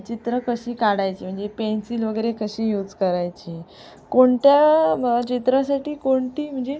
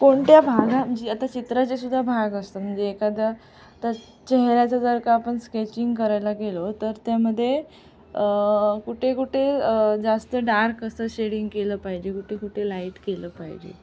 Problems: constant background noise